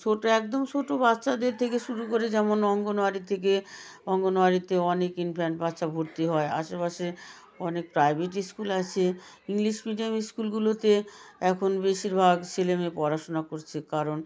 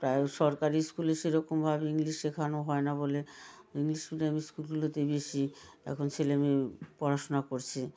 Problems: background conversations at intervals